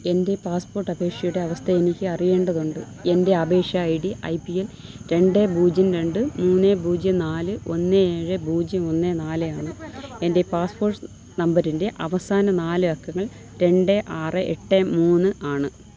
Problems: constant background noise, low volume